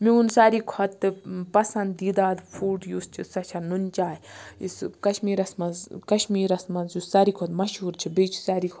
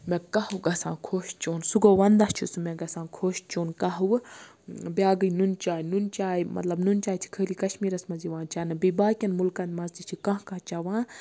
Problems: constant background noise